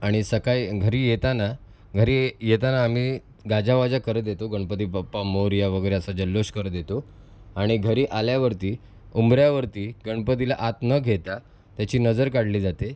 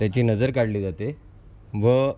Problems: constant background noise, background conversations at intervals